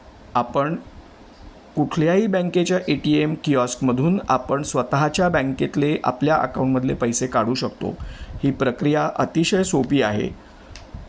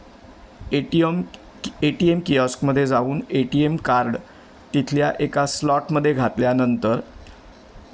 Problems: none marked